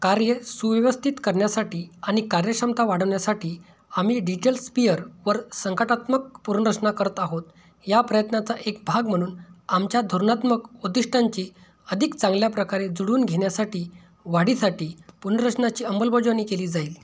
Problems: none marked